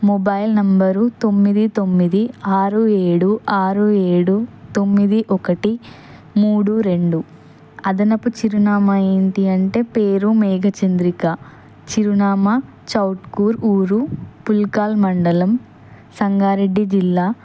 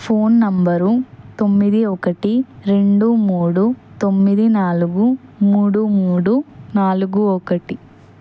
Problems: constant background noise